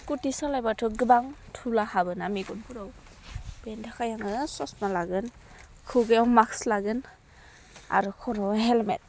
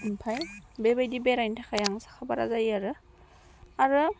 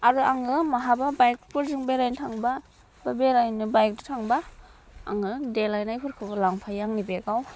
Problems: none marked